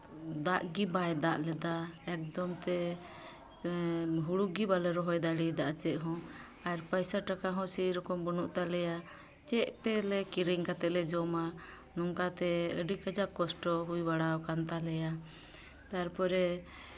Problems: constant background noise, background conversations at intervals